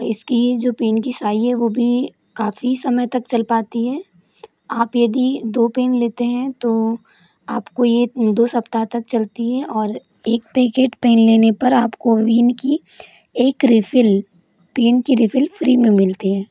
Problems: constant background noise